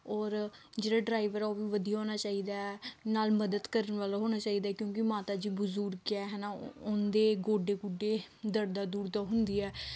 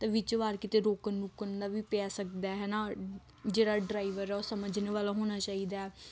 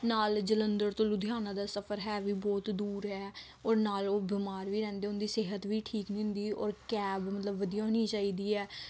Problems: none marked